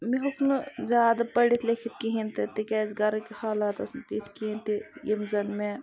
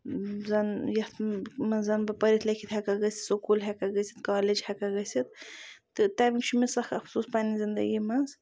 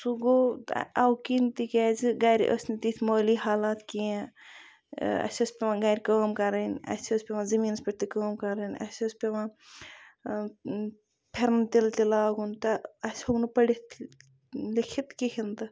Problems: none marked